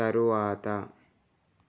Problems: none marked